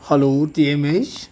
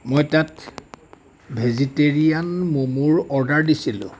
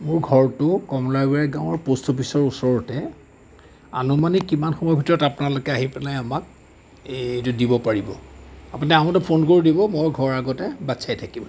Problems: background sounds at intervals